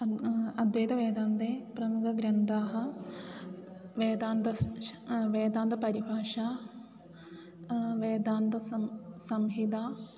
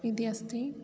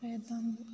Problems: constant background noise